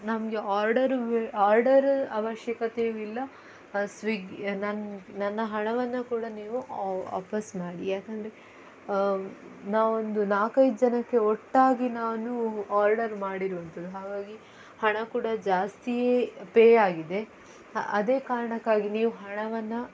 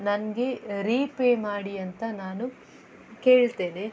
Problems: background sounds at intervals